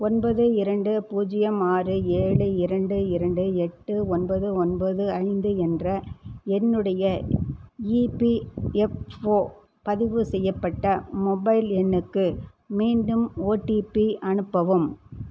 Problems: constant background noise